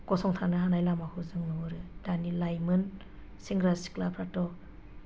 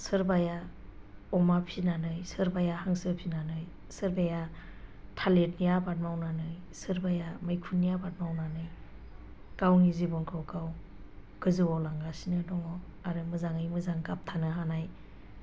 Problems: low volume